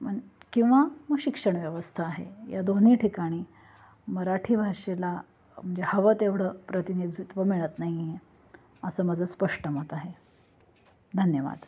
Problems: constant background noise